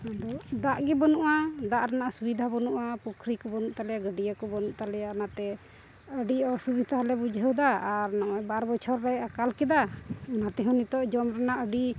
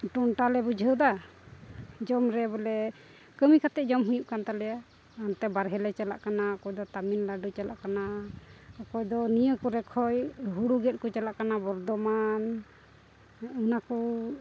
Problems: background sounds at intervals